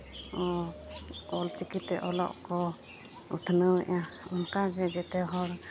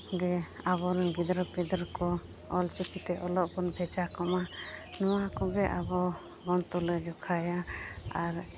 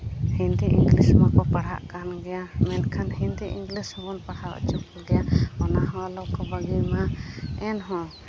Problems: none marked